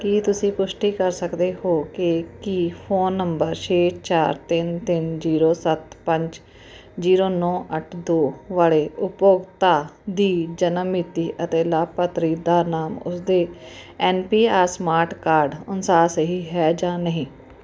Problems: none marked